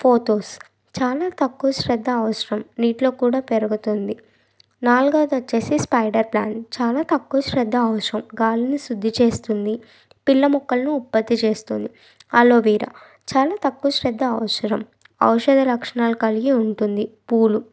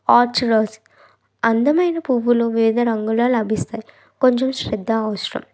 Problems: background sounds at intervals